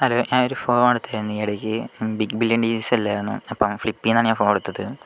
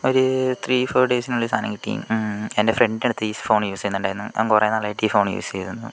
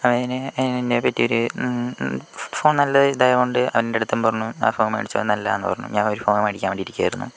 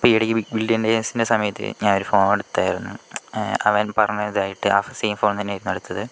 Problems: none marked